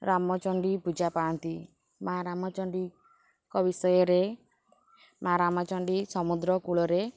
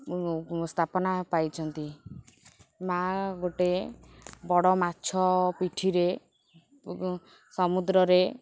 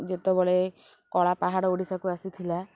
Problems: constant background noise, background conversations at intervals